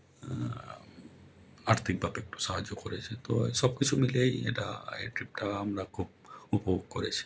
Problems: none marked